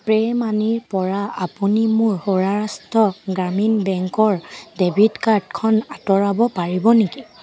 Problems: constant background noise, background conversations at intervals